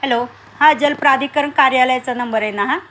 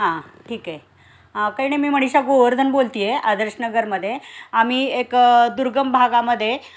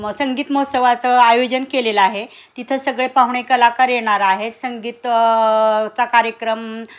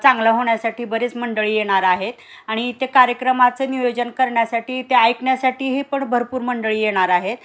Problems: constant background noise